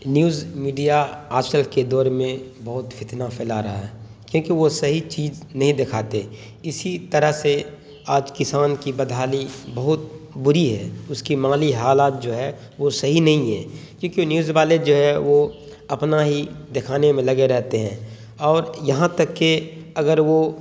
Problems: constant background noise